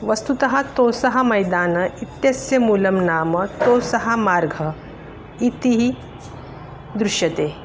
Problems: constant background noise